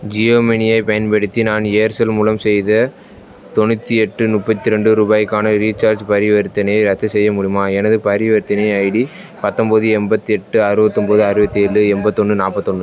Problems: background sounds at intervals, background conversations at intervals